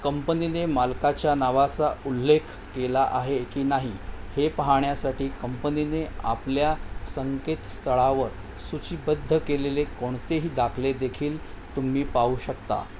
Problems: none marked